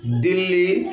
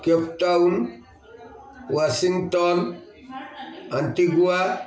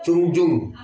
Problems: constant background noise, continuous background conversations